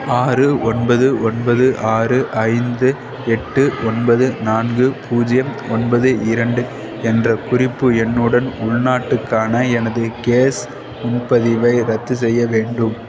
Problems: continuous background conversations